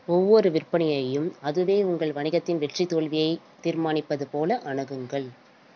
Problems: none marked